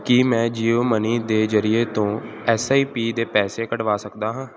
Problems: none marked